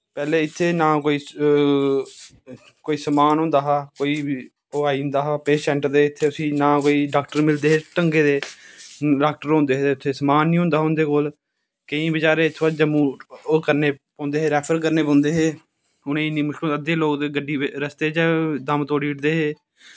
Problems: none marked